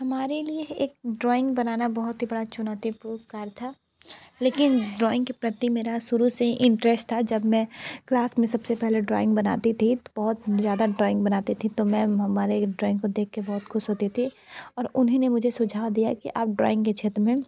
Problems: constant background noise